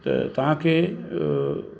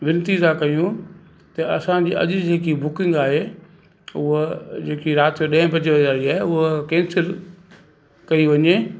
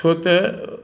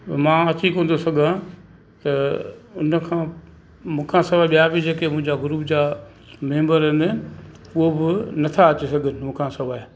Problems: constant background noise, echo